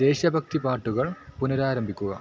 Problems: background sounds at intervals